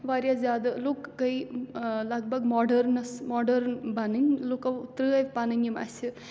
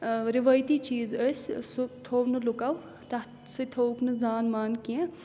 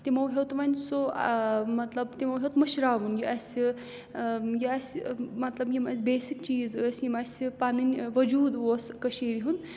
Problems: background sounds at intervals